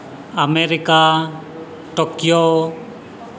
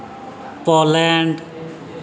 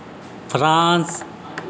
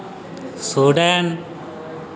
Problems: constant background noise